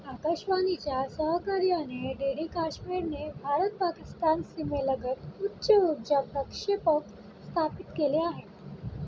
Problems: constant background noise